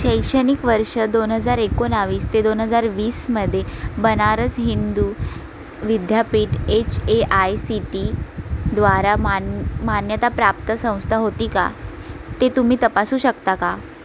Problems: constant background noise